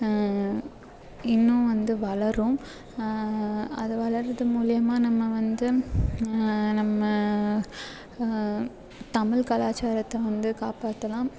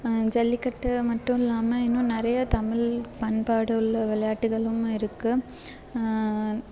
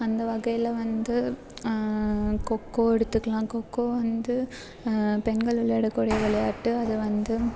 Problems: constant background noise